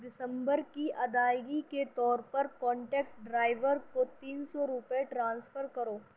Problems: background sounds at intervals, low volume